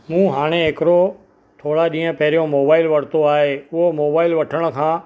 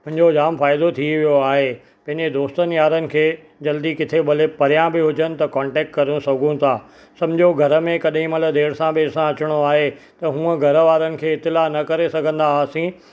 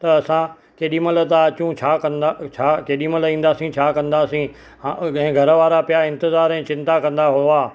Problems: none marked